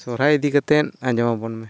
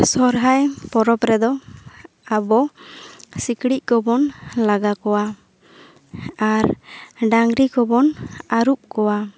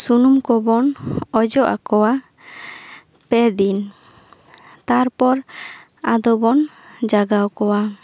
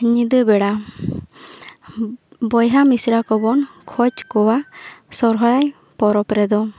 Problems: none marked